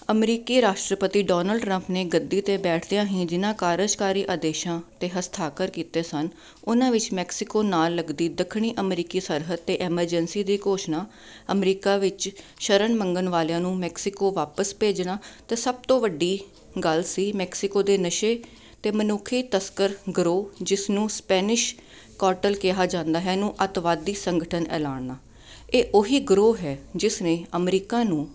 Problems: none marked